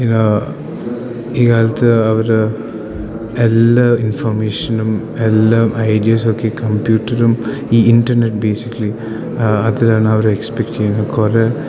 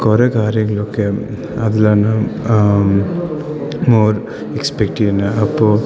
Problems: none marked